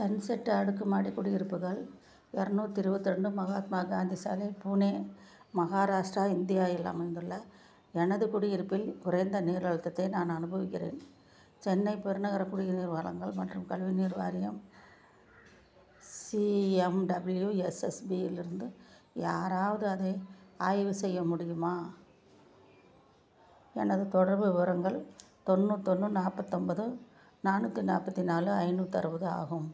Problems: low volume